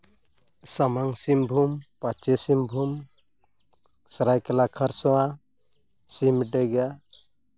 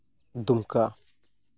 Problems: background sounds at intervals